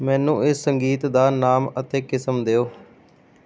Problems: background sounds at intervals